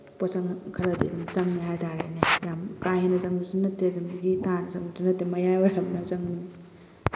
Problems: constant background noise